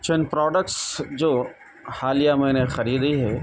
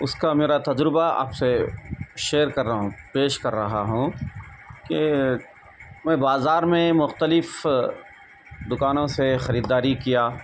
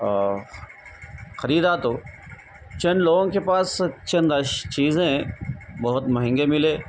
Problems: constant background noise